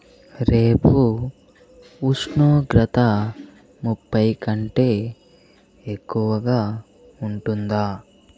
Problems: background sounds at intervals